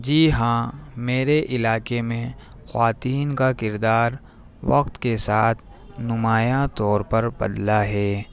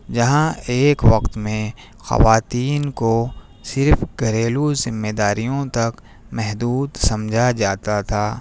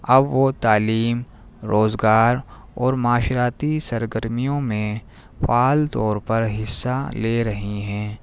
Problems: none marked